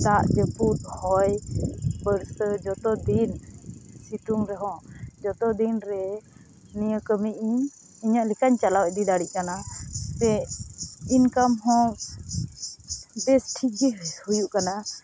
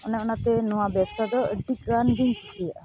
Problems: constant background noise